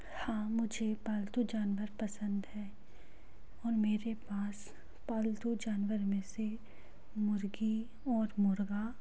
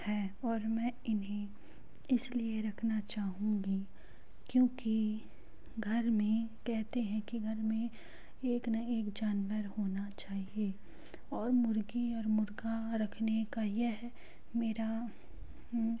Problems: background sounds at intervals